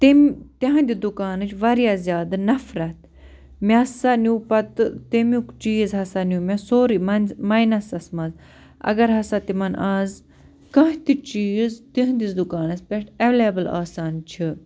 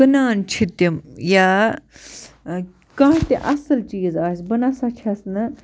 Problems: none marked